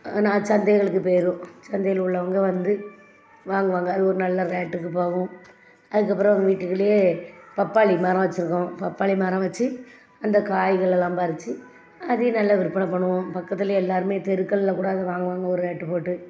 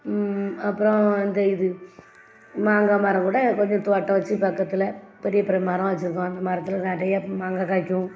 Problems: background sounds at intervals, background conversations at intervals